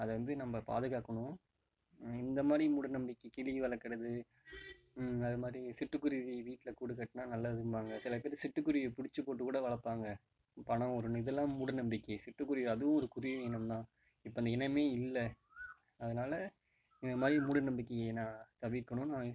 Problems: background sounds at intervals